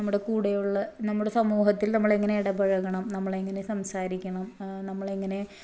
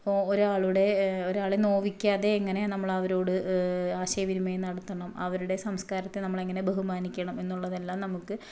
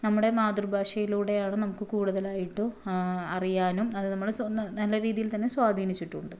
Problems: low volume